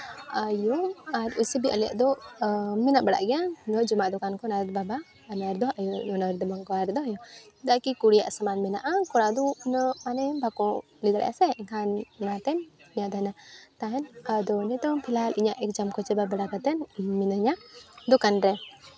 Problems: background sounds at intervals, background conversations at intervals